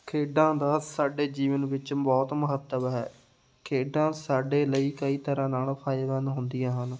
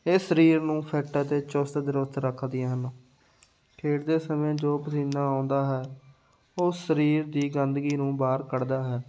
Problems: none marked